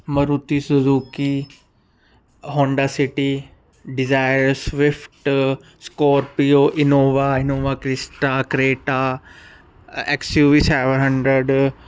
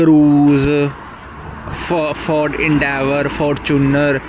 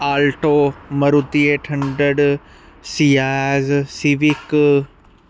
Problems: none marked